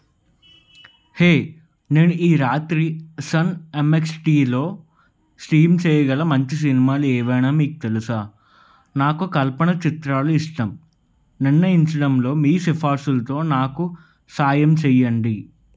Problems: none marked